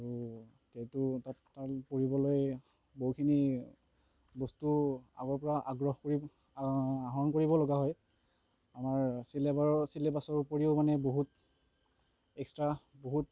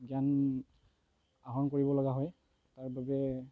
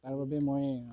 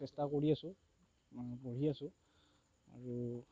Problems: constant background noise